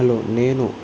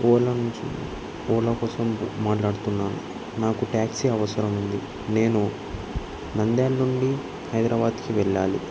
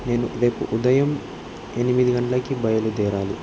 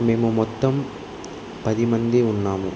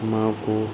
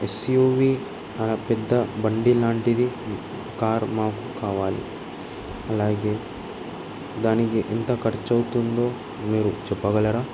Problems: constant background noise